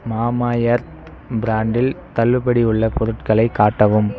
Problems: constant background noise